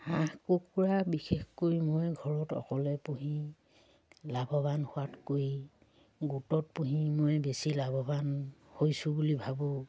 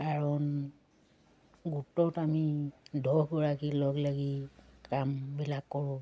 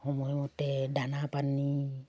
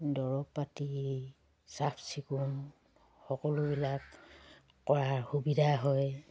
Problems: background sounds at intervals